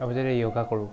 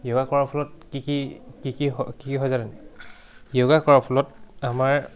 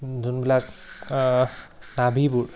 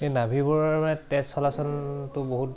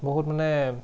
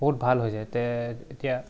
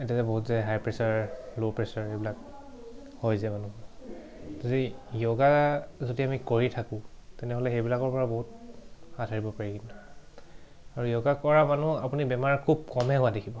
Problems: background sounds at intervals